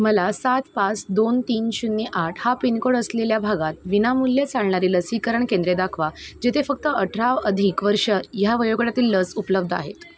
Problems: none marked